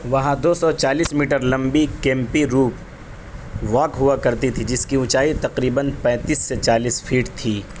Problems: constant background noise